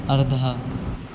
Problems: constant background noise